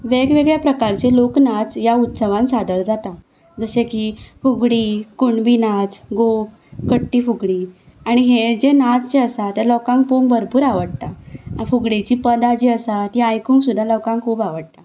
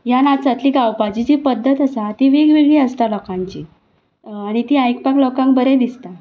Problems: background sounds at intervals